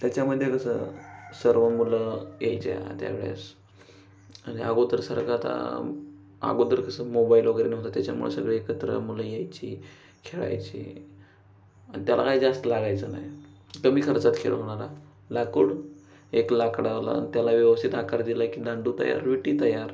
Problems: background sounds at intervals